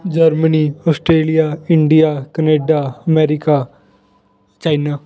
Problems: background conversations at intervals